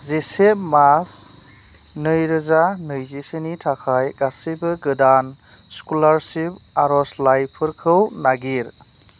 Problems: none marked